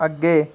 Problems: none marked